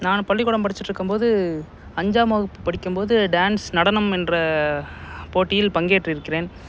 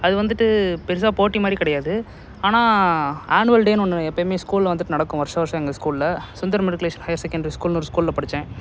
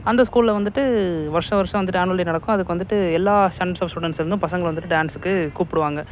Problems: background sounds at intervals